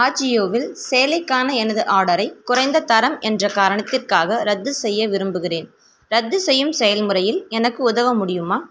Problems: constant background noise